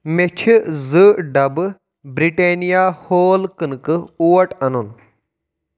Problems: none marked